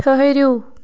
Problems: constant background noise